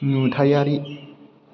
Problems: background conversations at intervals